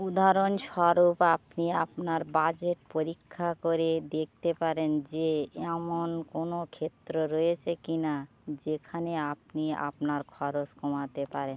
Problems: constant background noise, background conversations at intervals